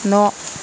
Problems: constant background noise